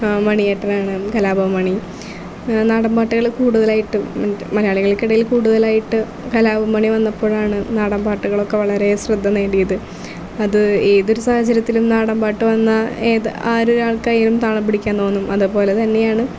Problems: constant background noise, low volume